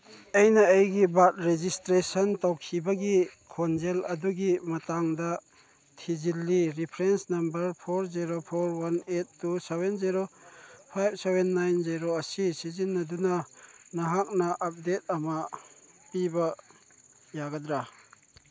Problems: none marked